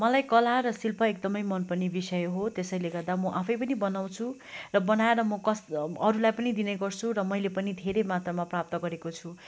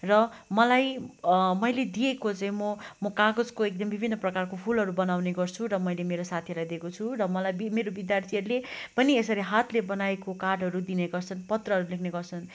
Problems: background sounds at intervals